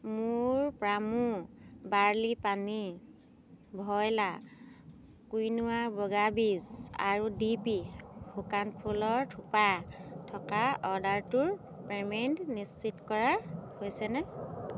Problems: constant background noise